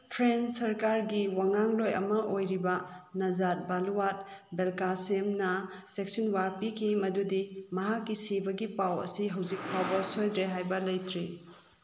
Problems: background sounds at intervals